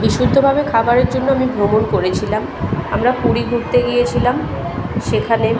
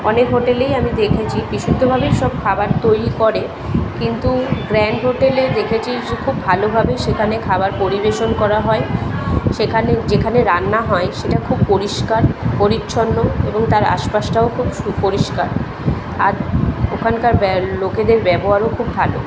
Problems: constant background noise, continuous background conversations